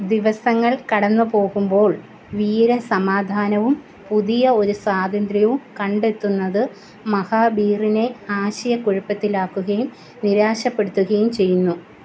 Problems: none marked